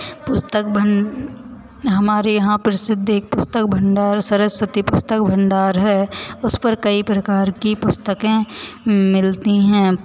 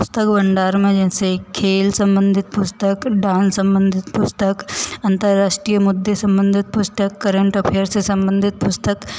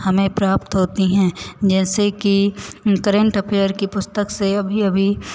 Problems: constant background noise, echo